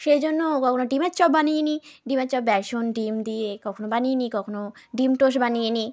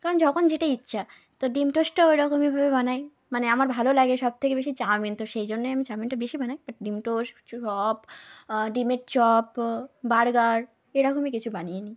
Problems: background conversations at intervals